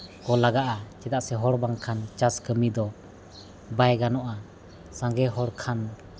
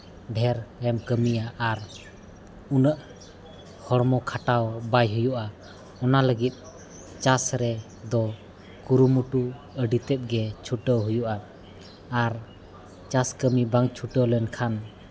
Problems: constant background noise